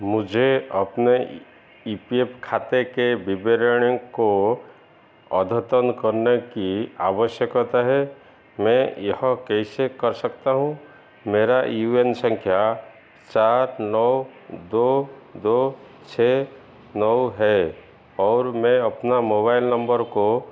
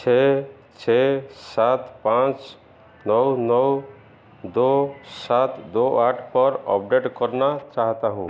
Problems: constant background noise, echo